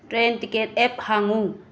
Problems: constant background noise